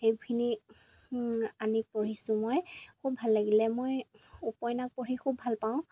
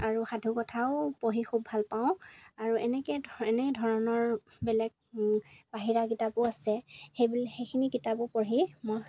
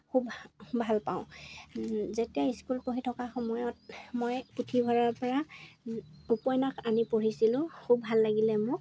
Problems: background sounds at intervals